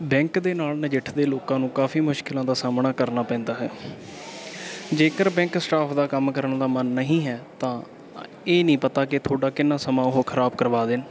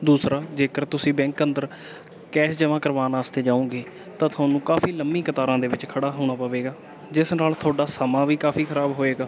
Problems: none marked